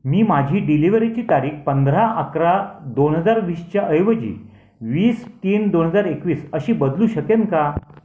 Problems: none marked